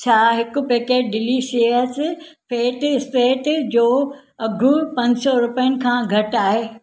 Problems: none marked